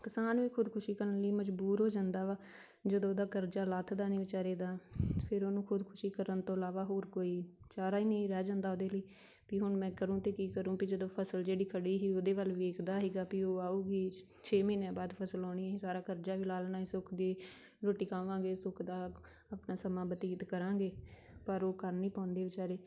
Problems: background conversations at intervals